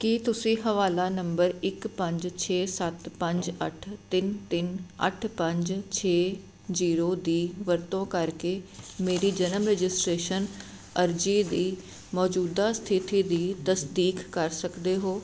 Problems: constant background noise